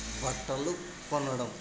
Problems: constant background noise